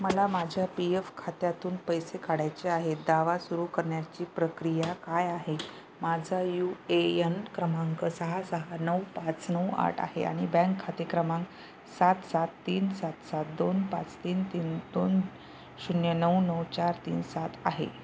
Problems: none marked